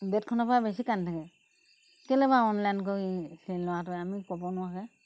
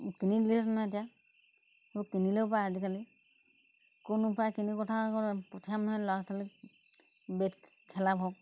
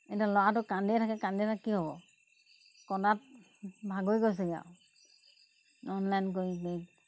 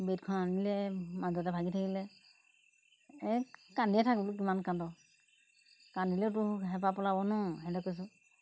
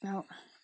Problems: constant background noise